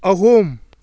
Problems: none marked